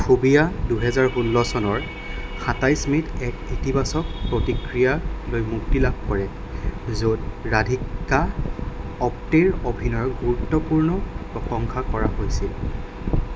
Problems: constant background noise